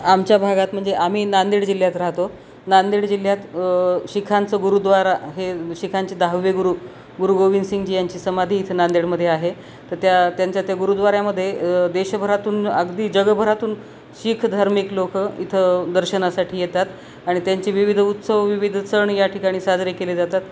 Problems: constant background noise